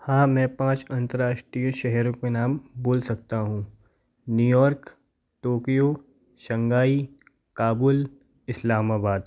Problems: none marked